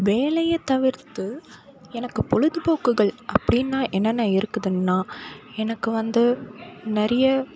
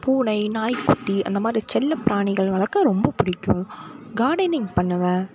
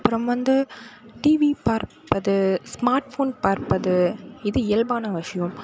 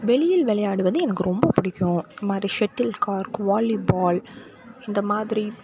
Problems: none marked